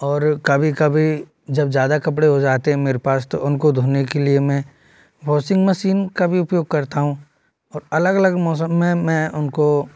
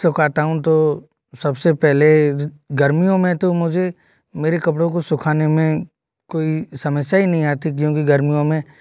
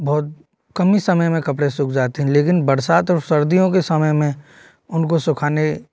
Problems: none marked